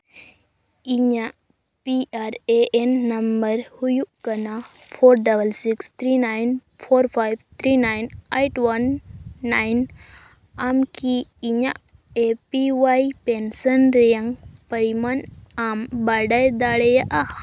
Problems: constant background noise